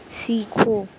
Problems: constant background noise